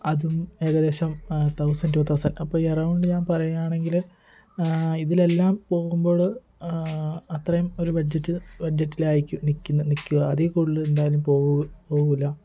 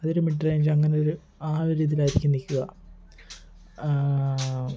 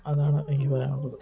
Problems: constant background noise, background conversations at intervals